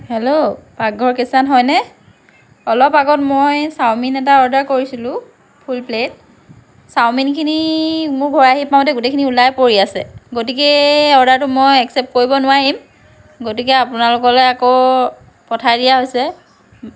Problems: background conversations at intervals